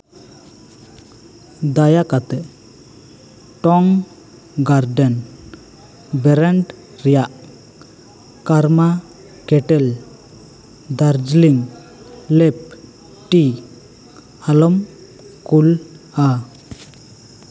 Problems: constant background noise, background conversations at intervals